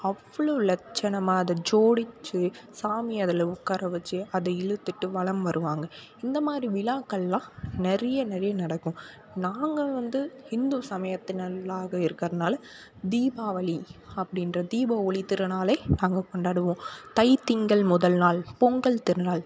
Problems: none marked